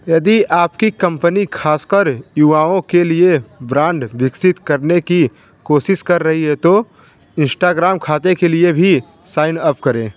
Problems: constant background noise